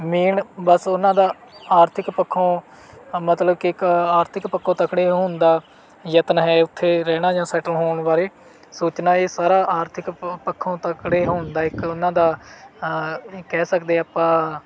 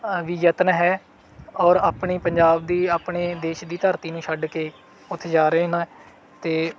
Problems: background sounds at intervals